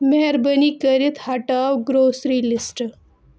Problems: none marked